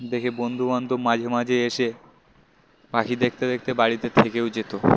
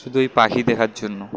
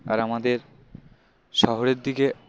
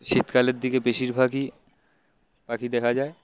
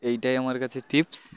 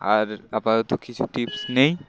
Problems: constant background noise